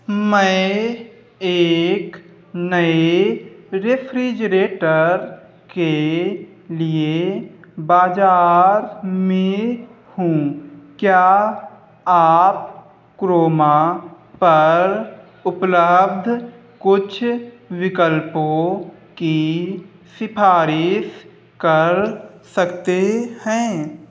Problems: none marked